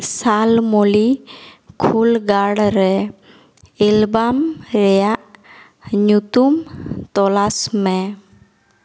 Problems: echo